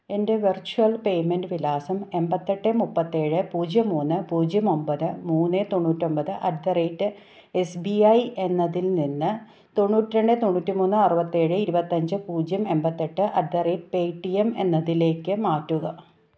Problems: none marked